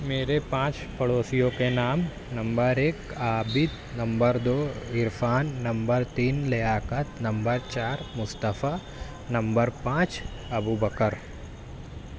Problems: none marked